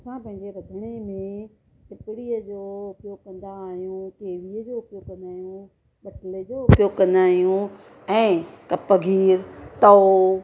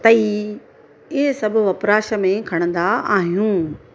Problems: constant background noise, low volume